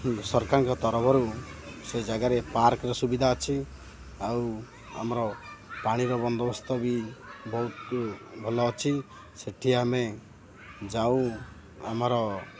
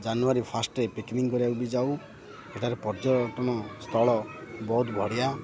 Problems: constant background noise, continuous background conversations